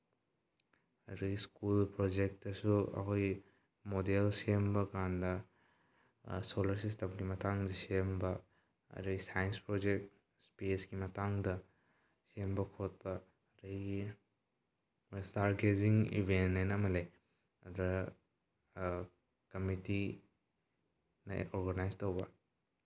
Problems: low volume